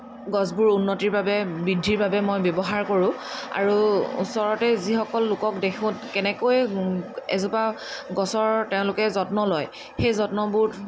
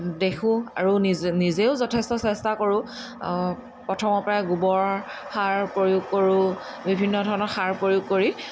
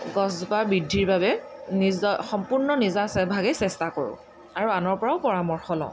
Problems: constant background noise